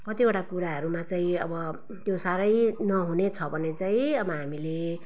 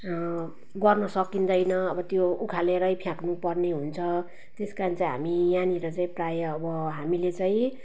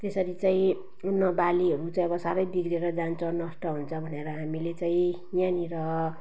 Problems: background sounds at intervals